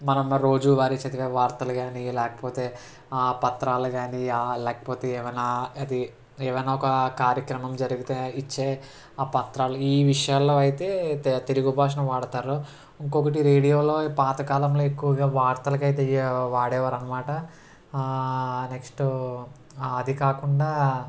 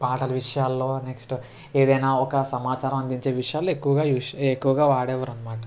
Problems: constant background noise